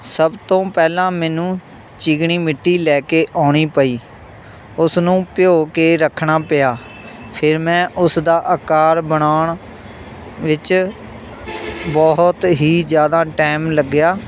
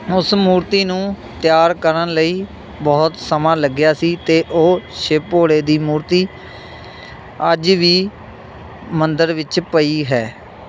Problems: none marked